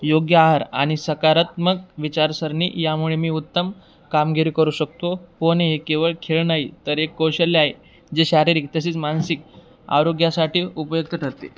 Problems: background sounds at intervals